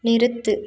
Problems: none marked